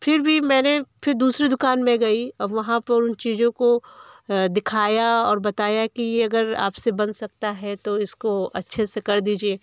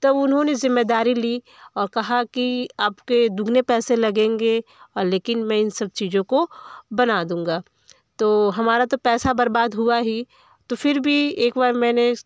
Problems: none marked